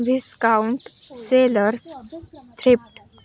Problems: background conversations at intervals